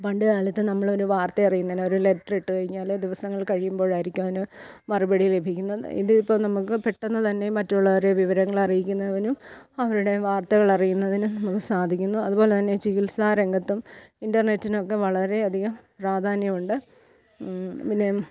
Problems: none marked